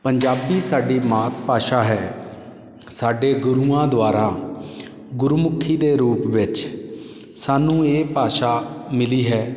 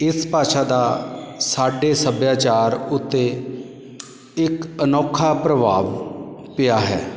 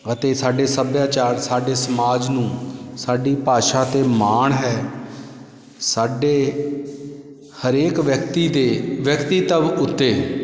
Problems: constant background noise, background conversations at intervals